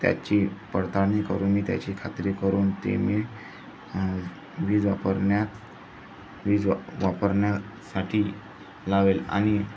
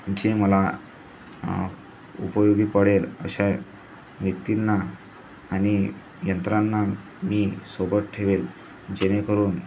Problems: constant background noise, background conversations at intervals